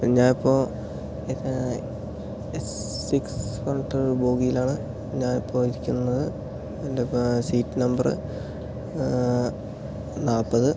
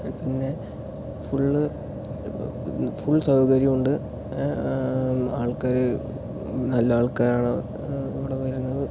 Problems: low volume